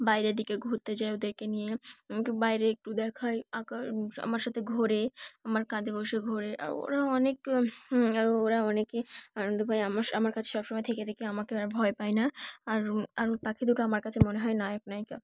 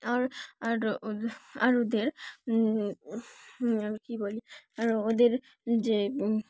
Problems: background sounds at intervals, background conversations at intervals